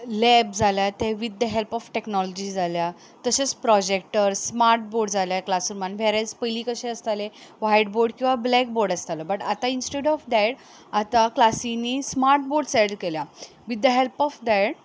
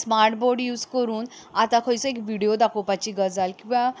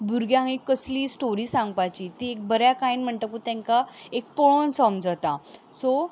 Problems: background sounds at intervals